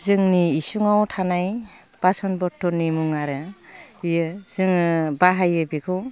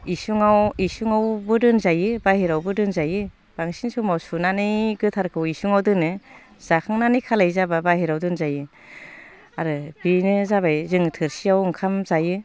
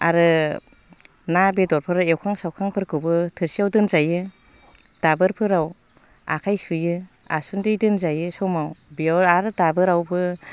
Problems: constant background noise